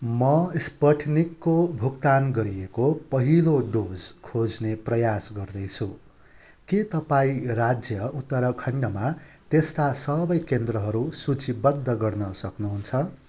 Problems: constant background noise